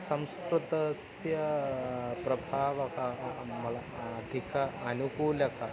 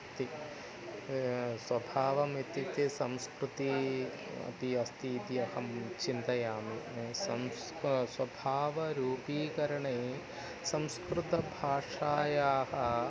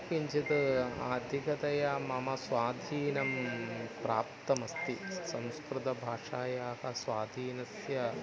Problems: constant background noise, continuous background conversations